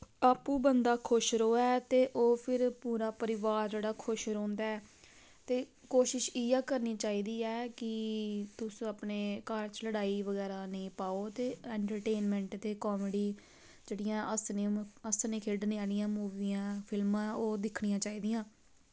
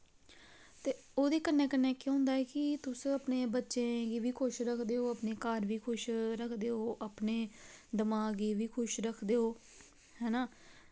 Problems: none marked